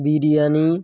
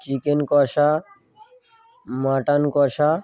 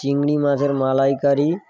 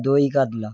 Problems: background sounds at intervals